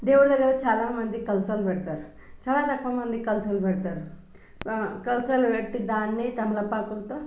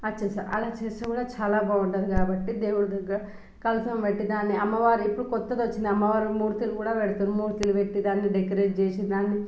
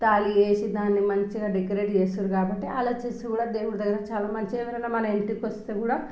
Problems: background sounds at intervals